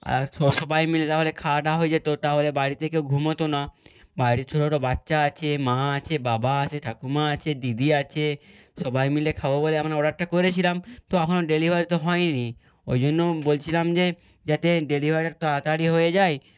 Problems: background sounds at intervals